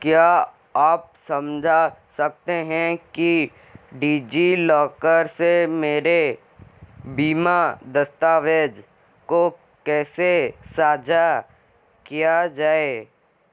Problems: constant background noise